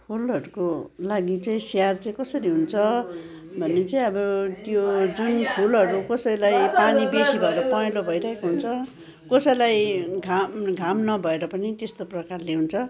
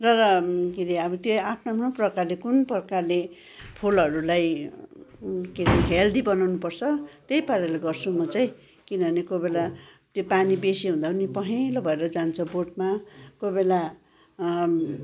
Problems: background sounds at intervals, background conversations at intervals